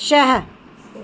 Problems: constant background noise